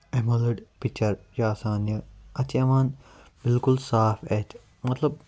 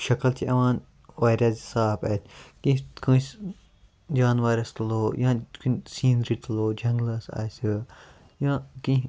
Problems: background sounds at intervals